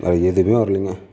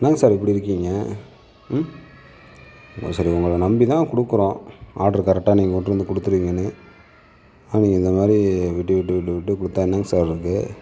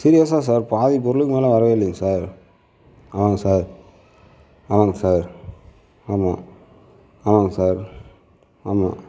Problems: none marked